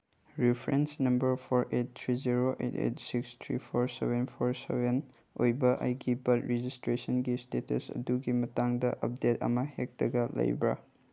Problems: none marked